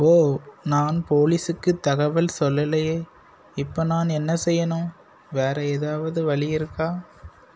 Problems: constant background noise